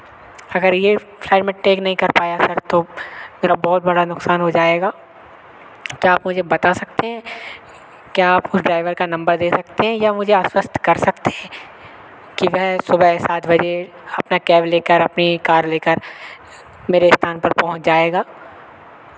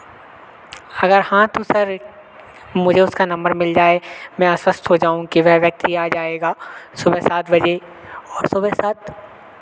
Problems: constant background noise